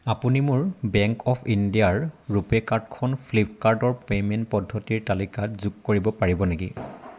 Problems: constant background noise